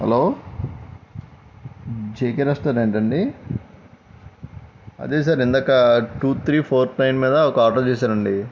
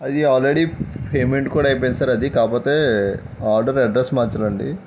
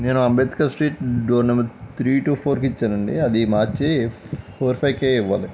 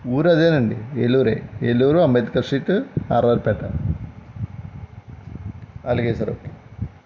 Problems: background sounds at intervals